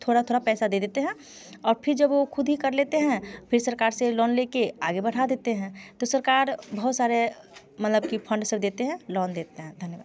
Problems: constant background noise